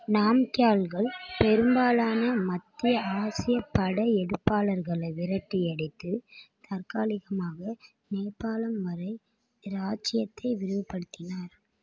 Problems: background conversations at intervals